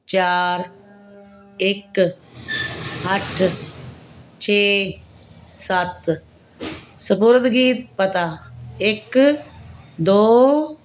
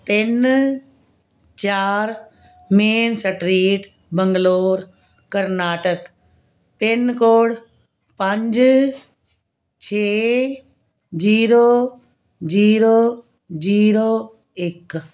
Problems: background sounds at intervals